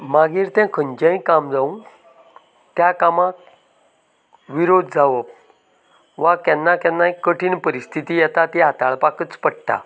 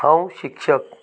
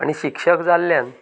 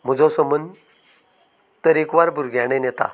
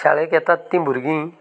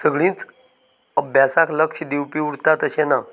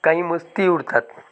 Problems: none marked